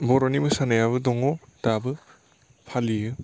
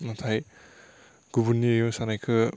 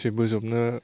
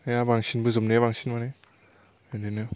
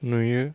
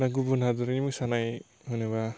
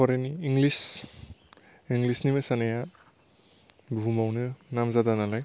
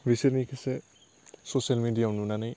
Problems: constant background noise